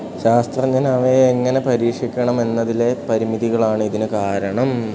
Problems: constant background noise